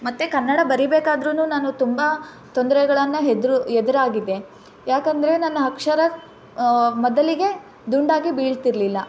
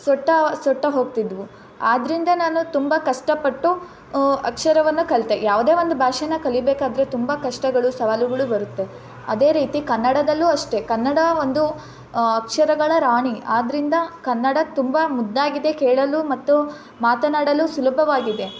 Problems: background sounds at intervals